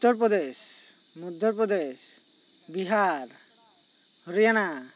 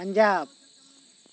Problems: none marked